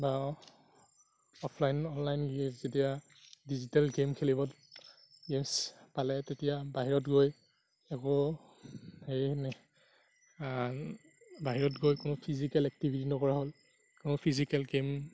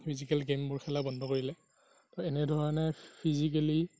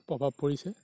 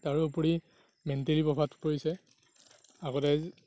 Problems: background sounds at intervals, low volume